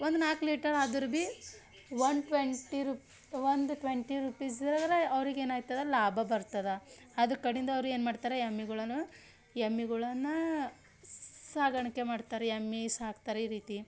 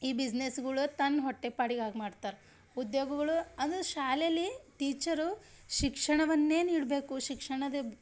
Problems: none marked